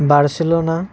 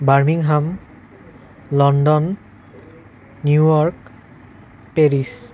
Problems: continuous background conversations